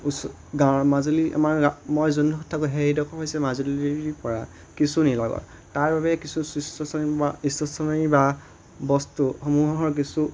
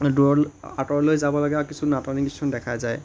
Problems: constant background noise